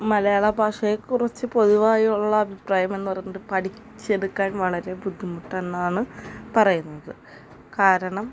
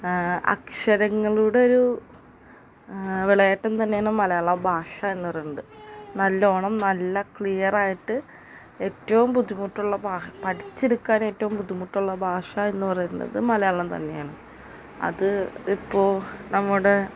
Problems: constant background noise